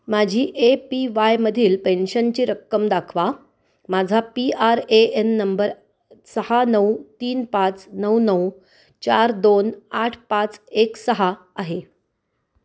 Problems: constant background noise